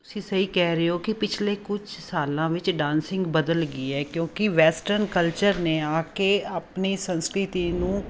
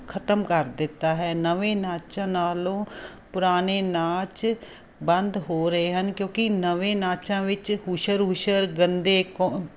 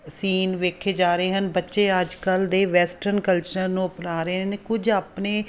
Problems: none marked